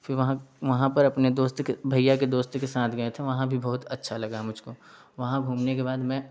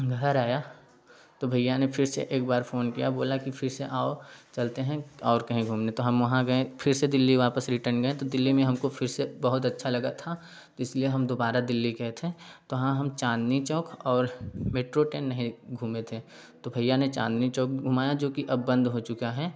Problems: background sounds at intervals, background conversations at intervals